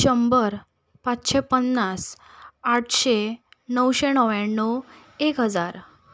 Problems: none marked